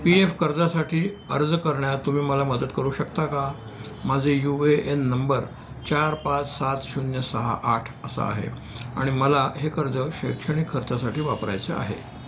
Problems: constant background noise, background conversations at intervals